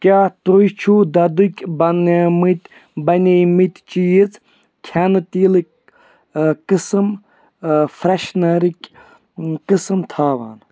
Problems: background sounds at intervals